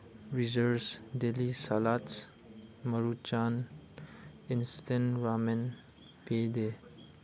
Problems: none marked